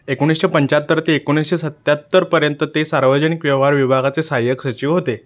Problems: none marked